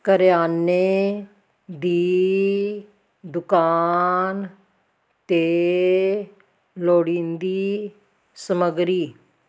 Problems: none marked